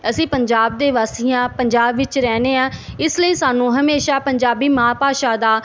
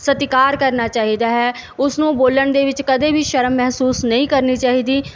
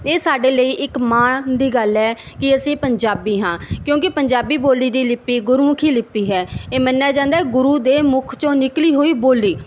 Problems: background sounds at intervals